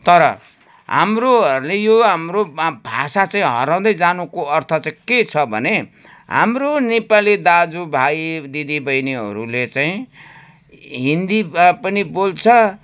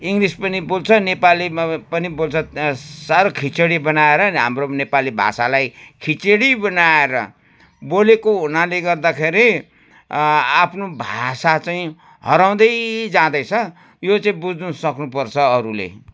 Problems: background sounds at intervals